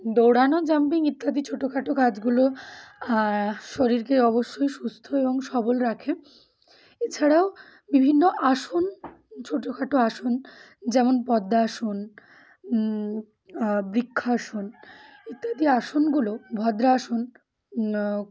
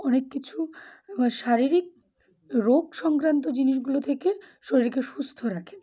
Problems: constant background noise